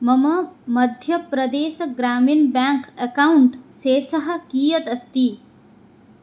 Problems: none marked